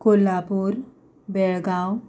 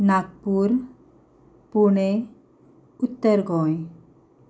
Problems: none marked